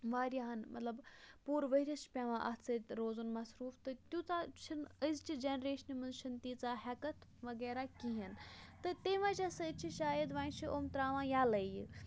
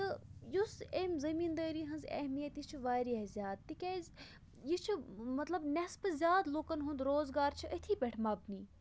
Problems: low volume